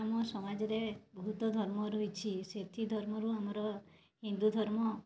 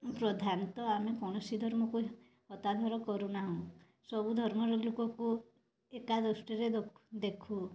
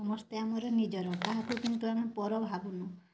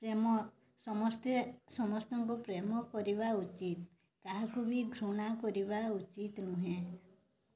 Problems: none marked